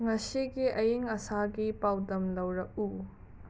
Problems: background sounds at intervals